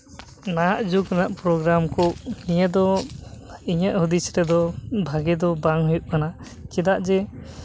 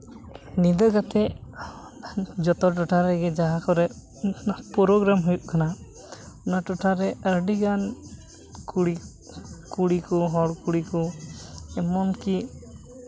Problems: none marked